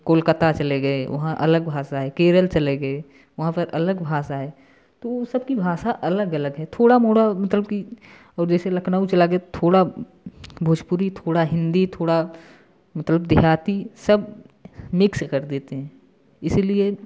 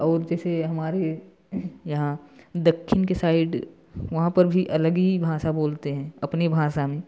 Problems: constant background noise